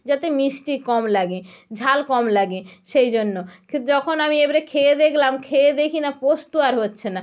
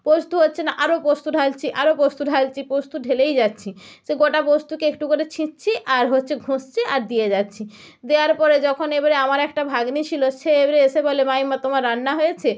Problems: none marked